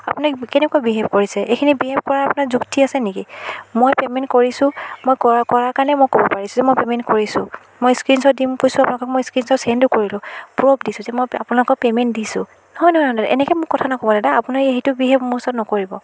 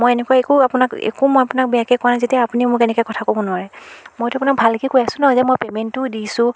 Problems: background sounds at intervals